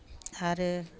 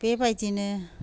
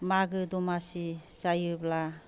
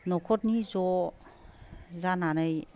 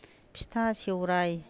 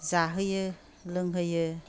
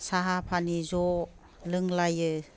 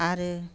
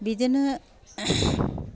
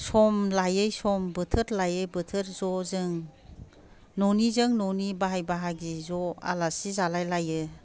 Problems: none marked